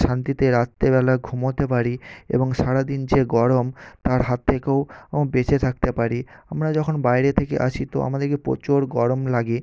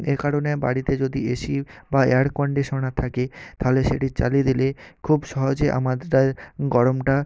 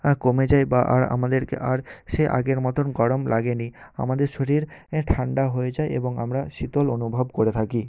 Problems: none marked